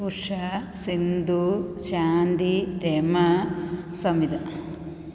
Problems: background sounds at intervals